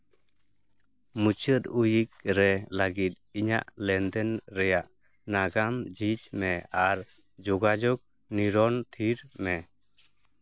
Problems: none marked